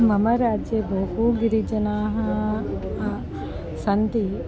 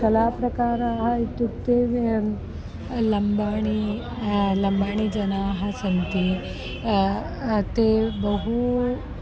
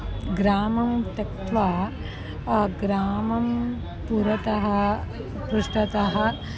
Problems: background conversations at intervals